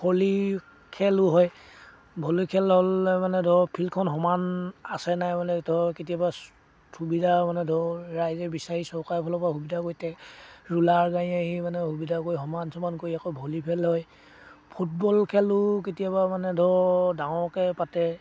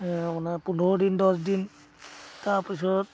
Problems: constant background noise, background conversations at intervals